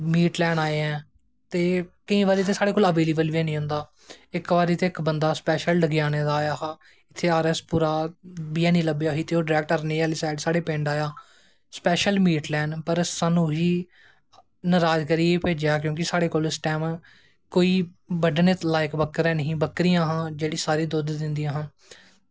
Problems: none marked